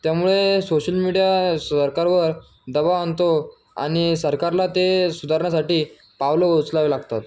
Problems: constant background noise